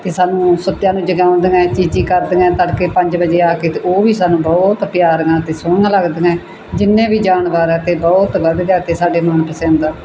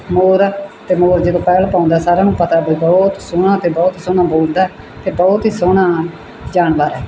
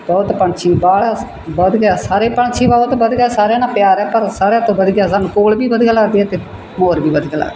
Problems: background sounds at intervals